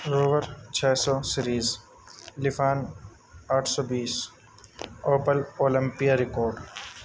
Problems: constant background noise